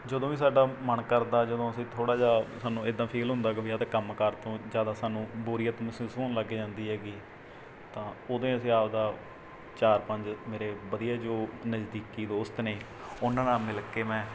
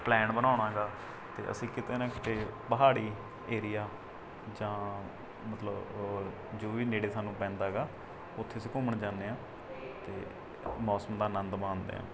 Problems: background sounds at intervals